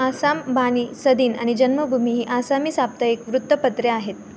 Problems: background conversations at intervals